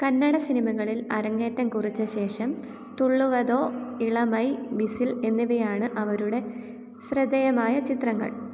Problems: low volume